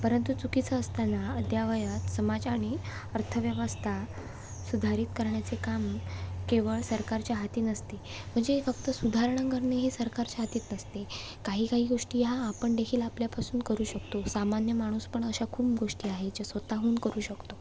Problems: constant background noise